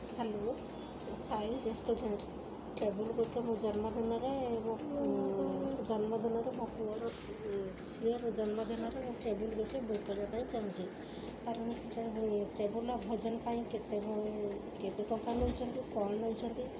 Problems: constant background noise